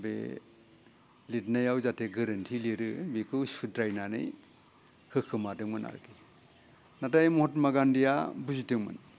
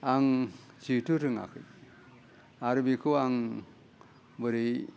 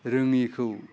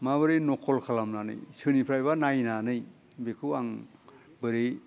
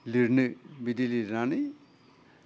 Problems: low volume